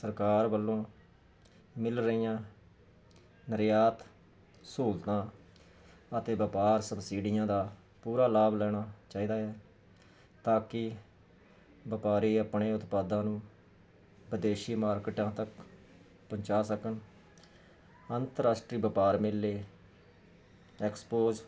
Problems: none marked